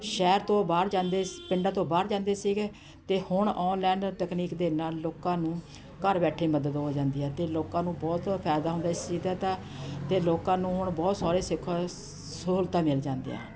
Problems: constant background noise, continuous background conversations